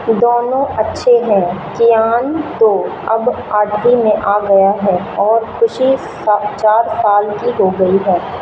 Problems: constant background noise